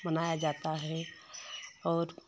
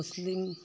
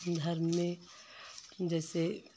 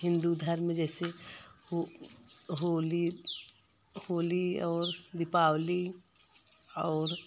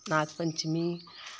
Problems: none marked